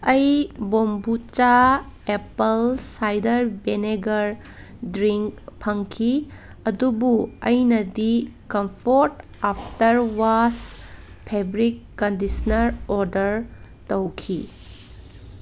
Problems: background sounds at intervals